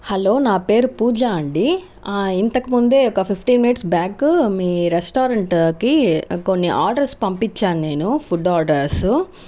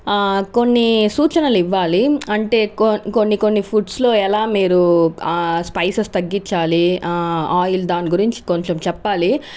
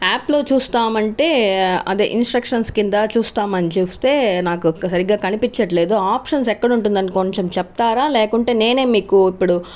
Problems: none marked